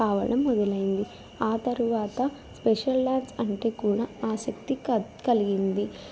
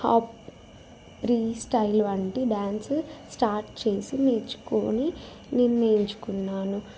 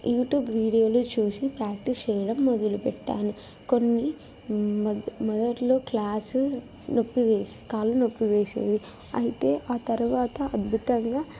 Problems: background sounds at intervals